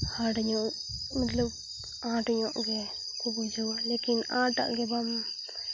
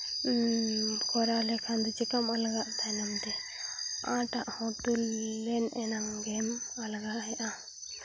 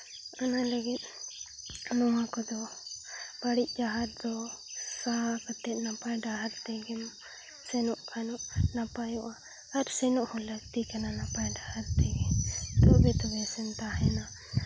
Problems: constant background noise